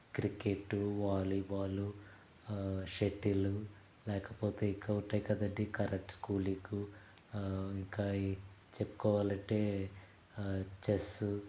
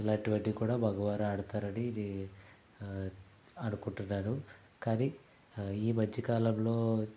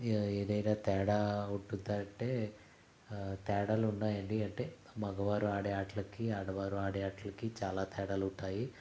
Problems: background sounds at intervals, low volume